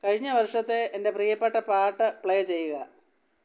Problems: none marked